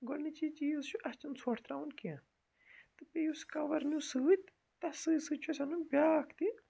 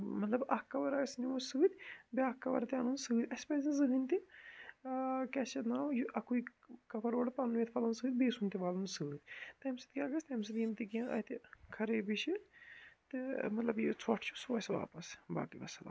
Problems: none marked